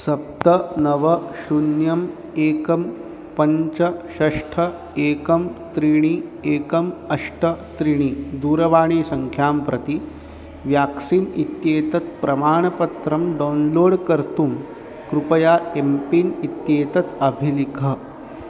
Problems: constant background noise